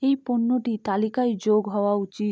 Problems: low volume